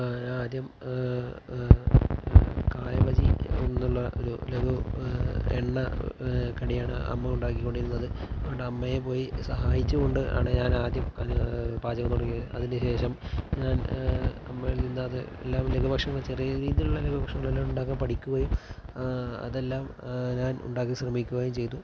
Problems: background sounds at intervals